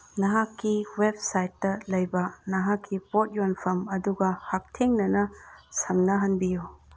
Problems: none marked